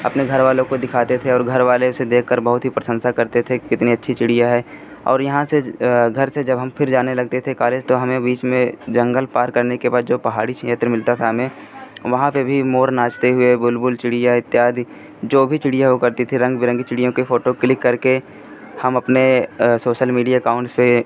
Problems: constant background noise